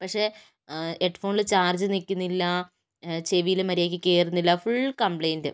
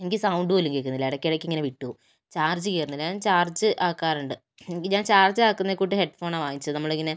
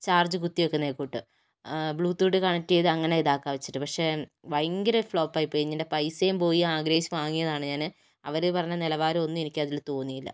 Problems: none marked